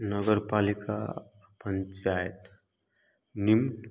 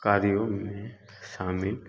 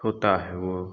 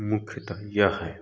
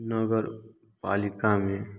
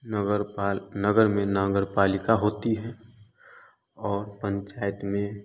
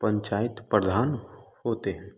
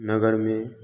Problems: none marked